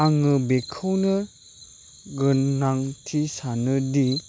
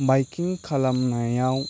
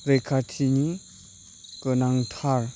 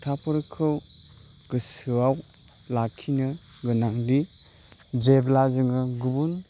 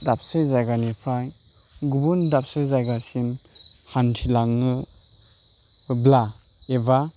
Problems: constant background noise